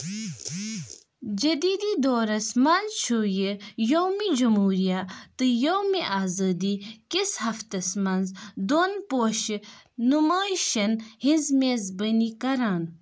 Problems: background sounds at intervals